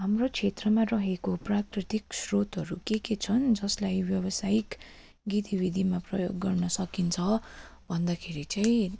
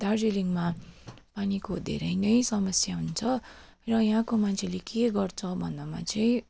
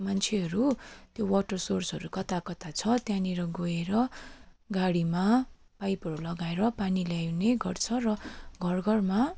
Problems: constant background noise